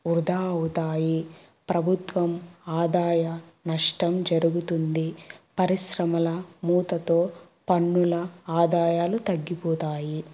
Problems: background sounds at intervals